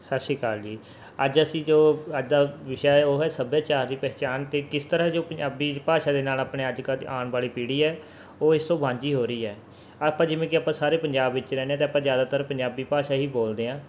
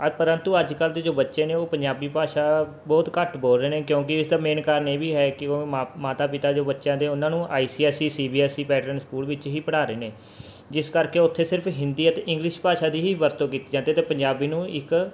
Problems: none marked